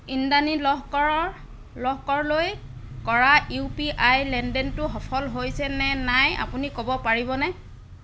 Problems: none marked